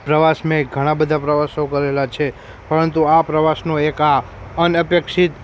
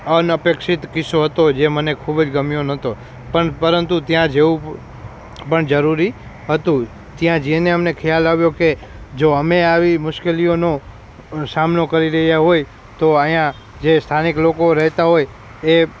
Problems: background sounds at intervals